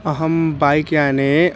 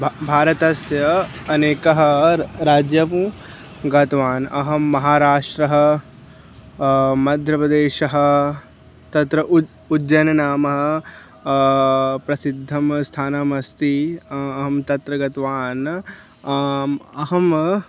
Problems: constant background noise